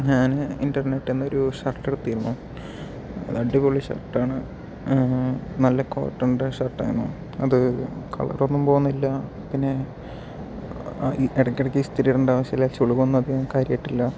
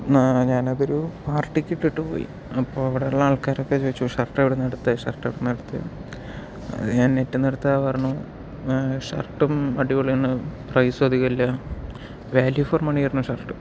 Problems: background sounds at intervals